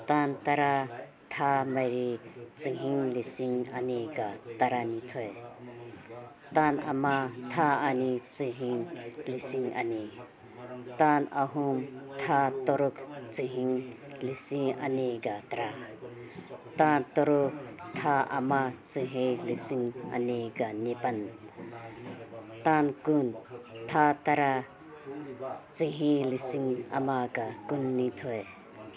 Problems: background conversations at intervals